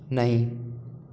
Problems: background sounds at intervals